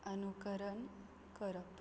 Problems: low volume